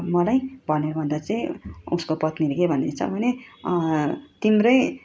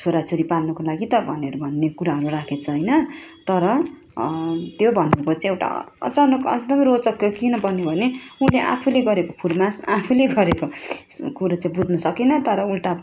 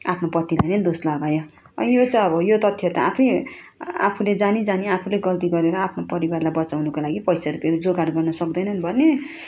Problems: constant background noise